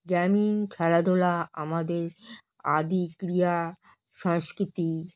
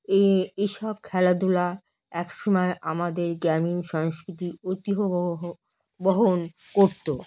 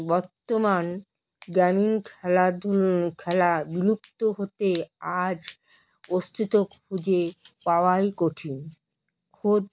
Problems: none marked